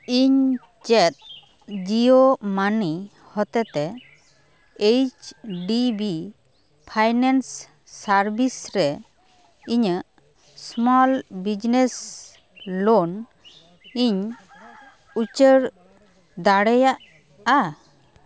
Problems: constant background noise, continuous background conversations